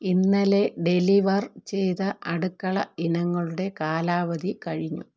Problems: none marked